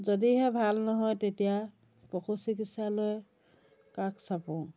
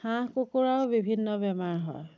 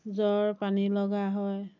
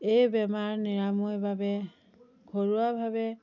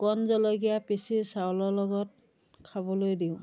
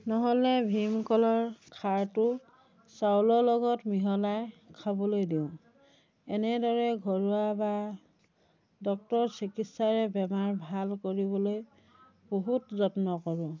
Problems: background conversations at intervals